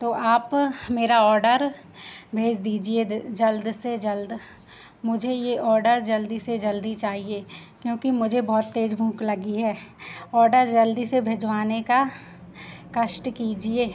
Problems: constant background noise